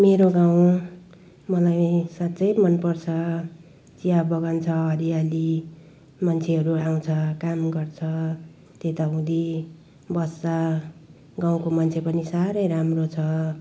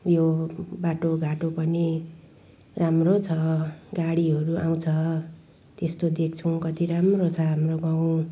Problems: background sounds at intervals